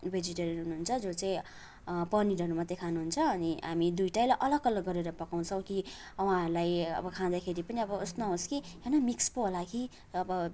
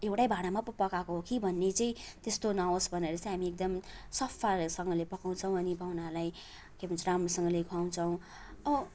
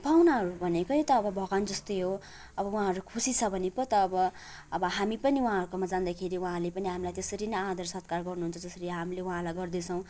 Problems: none marked